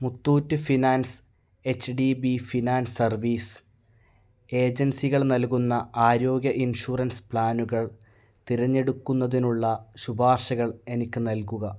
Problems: none marked